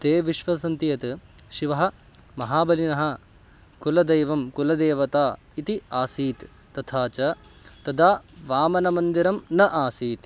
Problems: constant background noise